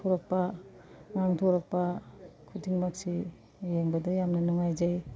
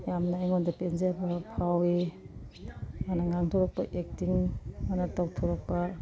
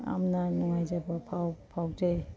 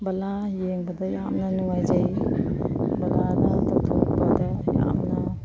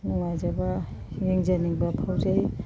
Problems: constant background noise